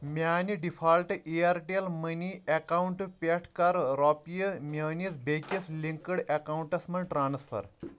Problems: background sounds at intervals